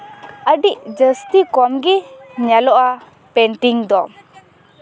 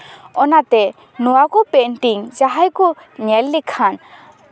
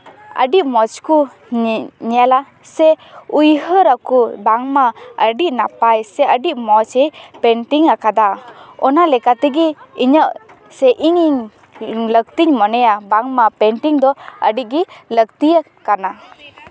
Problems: background sounds at intervals, continuous background conversations